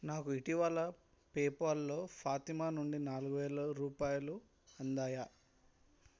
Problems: none marked